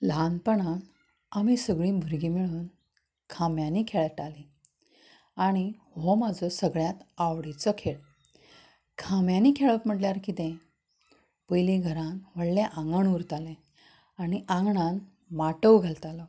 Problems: constant background noise